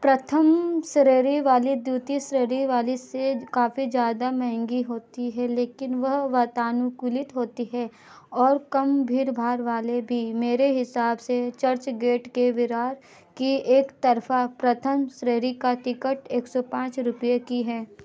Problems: none marked